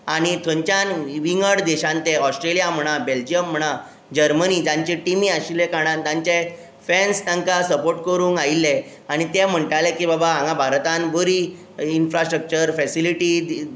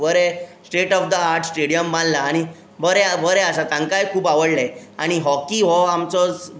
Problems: none marked